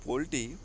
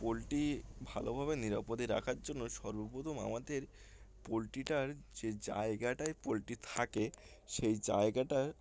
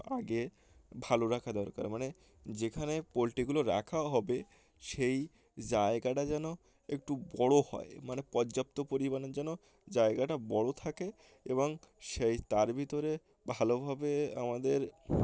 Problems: constant background noise, background conversations at intervals